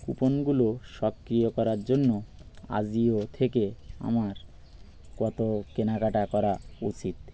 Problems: none marked